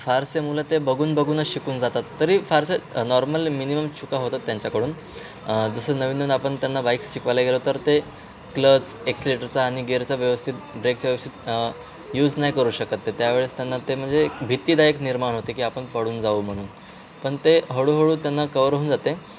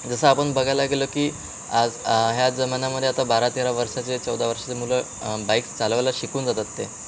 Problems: constant background noise